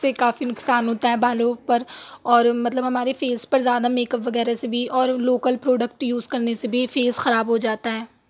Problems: none marked